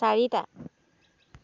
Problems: none marked